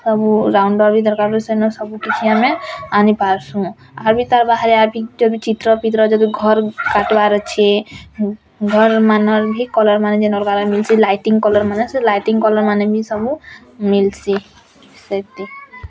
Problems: constant background noise, continuous background conversations